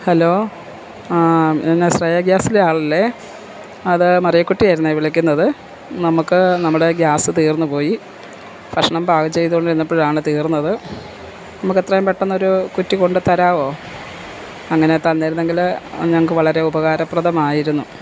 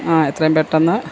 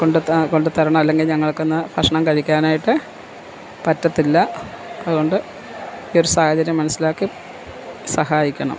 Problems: constant background noise